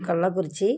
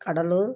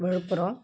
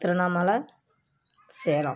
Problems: constant background noise